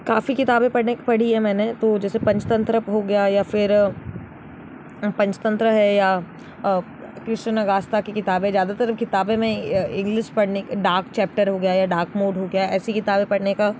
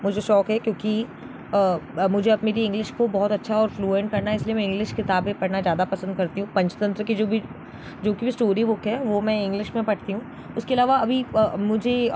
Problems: constant background noise